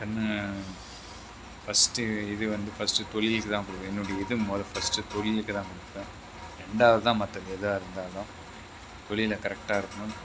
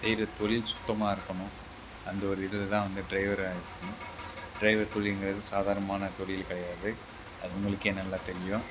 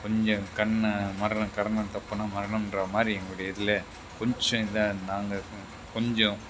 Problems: background sounds at intervals